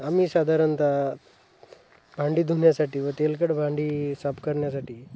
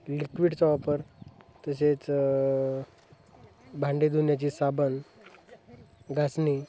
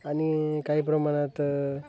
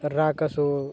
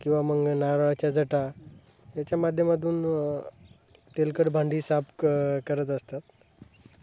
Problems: none marked